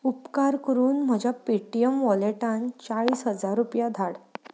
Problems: background sounds at intervals